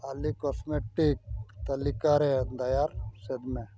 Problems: constant background noise